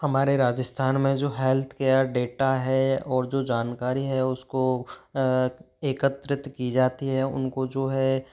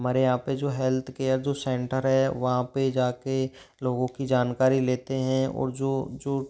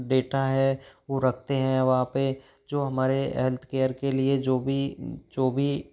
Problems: background sounds at intervals